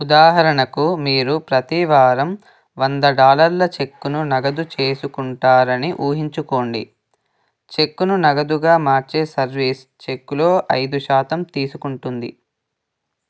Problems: none marked